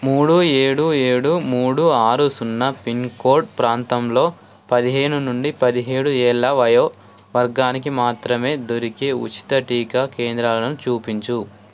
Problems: constant background noise